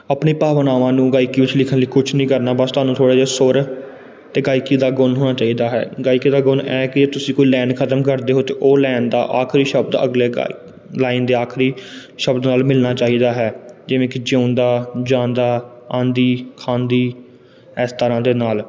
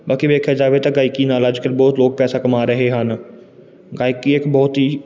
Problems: background sounds at intervals